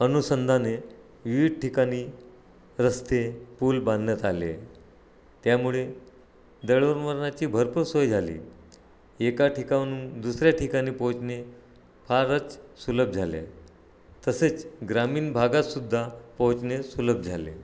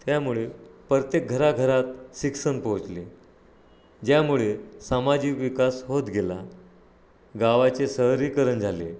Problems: none marked